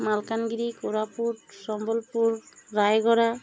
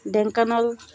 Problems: none marked